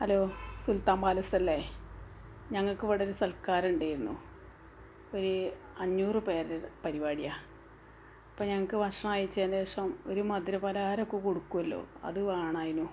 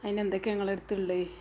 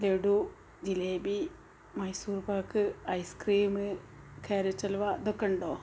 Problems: background sounds at intervals